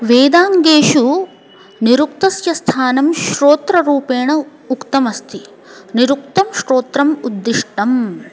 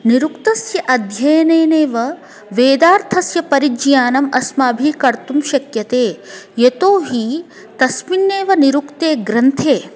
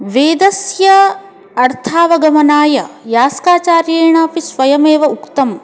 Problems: continuous background conversations